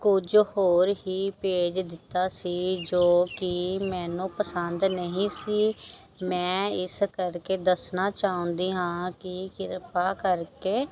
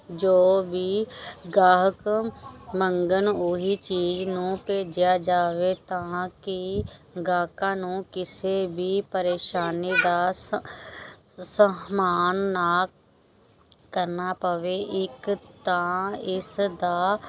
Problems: background sounds at intervals, background conversations at intervals